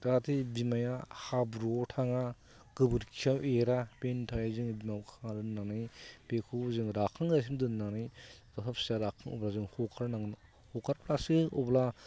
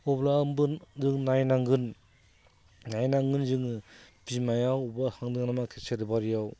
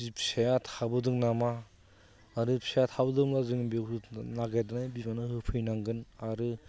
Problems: constant background noise